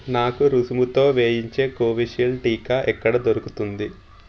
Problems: constant background noise